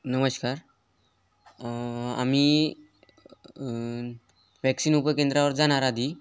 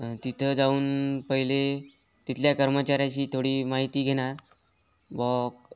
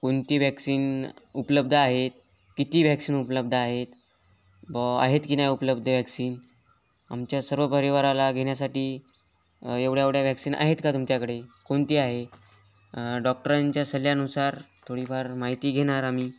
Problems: background sounds at intervals